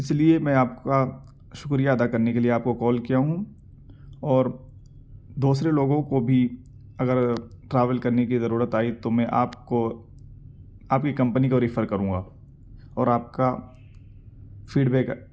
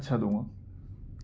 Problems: none marked